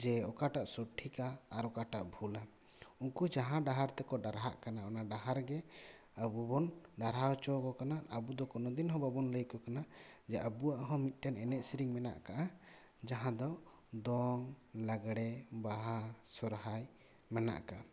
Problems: none marked